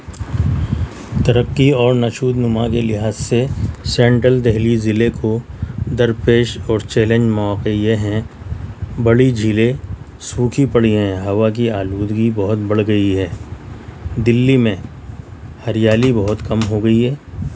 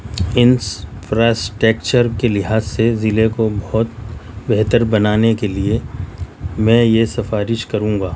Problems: none marked